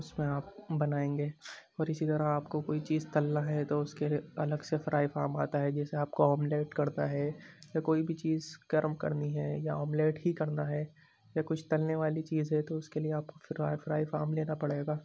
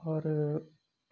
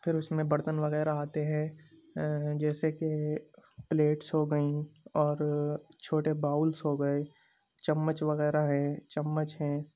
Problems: background sounds at intervals, background conversations at intervals